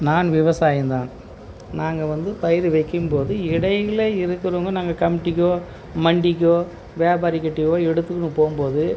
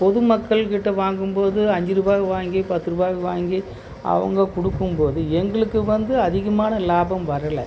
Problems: constant background noise